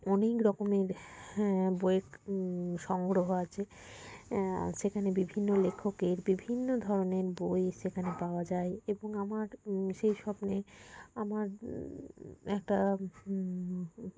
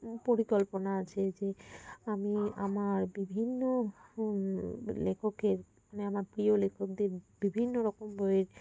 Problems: constant background noise